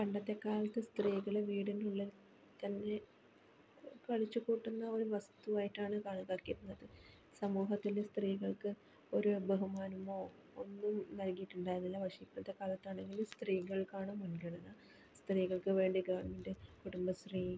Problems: background sounds at intervals, low volume